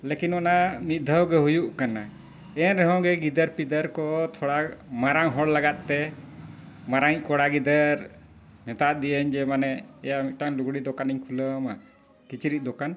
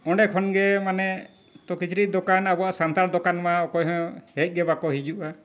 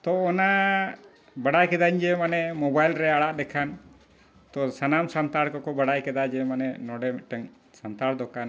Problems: background sounds at intervals, low volume